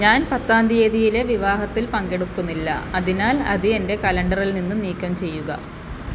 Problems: background sounds at intervals